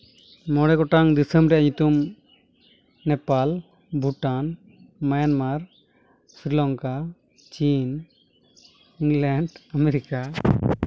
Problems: none marked